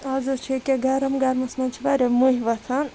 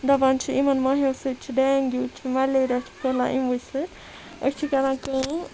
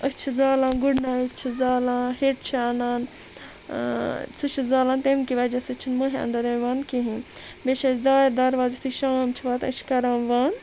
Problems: constant background noise